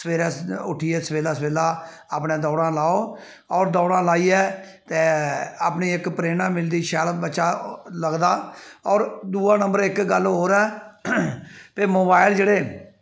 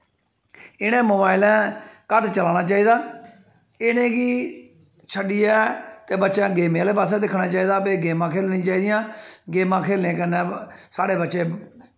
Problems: echo